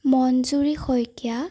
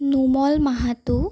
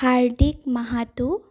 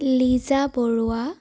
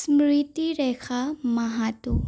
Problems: none marked